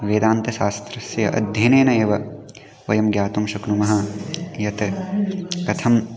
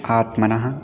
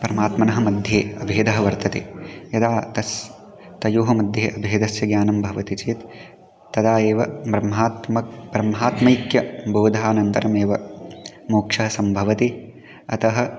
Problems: continuous background conversations